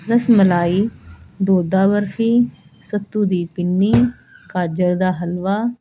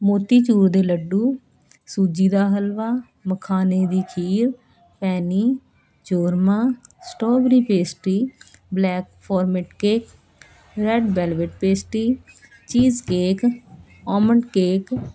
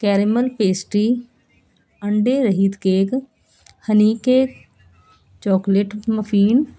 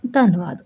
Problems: none marked